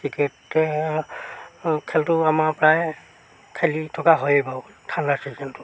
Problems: background sounds at intervals